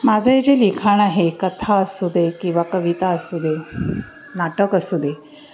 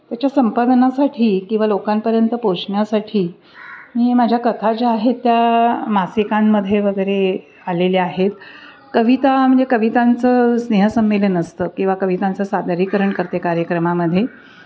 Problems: background sounds at intervals, background conversations at intervals